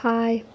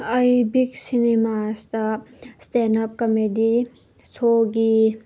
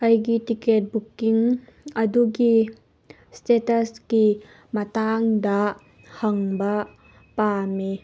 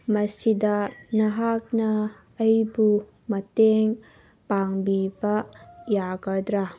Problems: background conversations at intervals